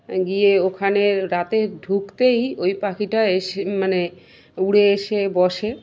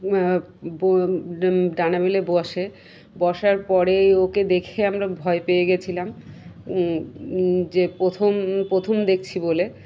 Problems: constant background noise